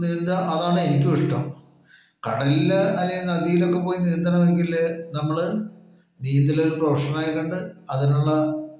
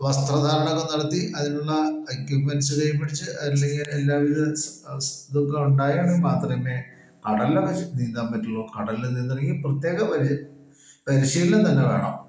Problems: echo